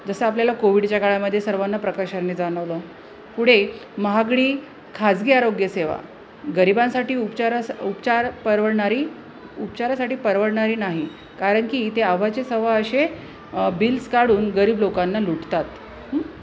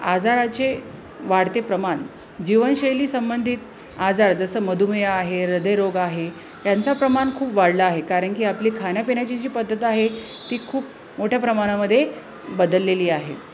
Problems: constant background noise